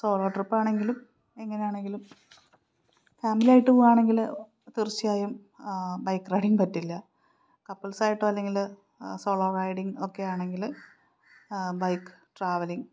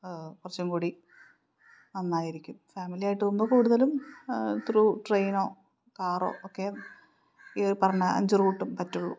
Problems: none marked